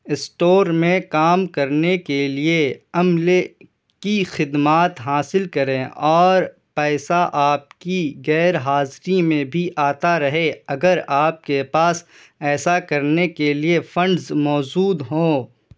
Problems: none marked